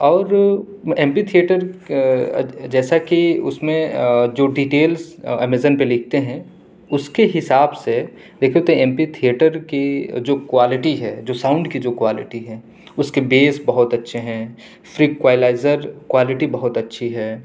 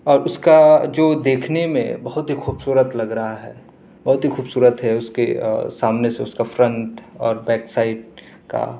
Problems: none marked